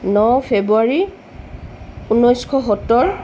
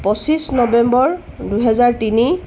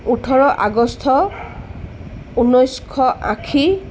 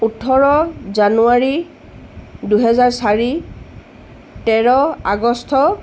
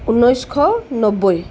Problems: constant background noise